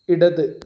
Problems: none marked